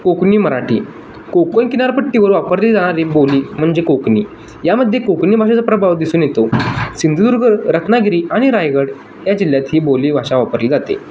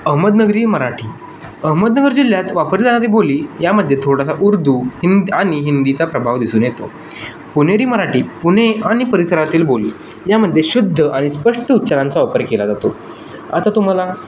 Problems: constant background noise